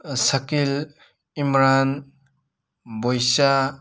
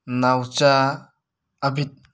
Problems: none marked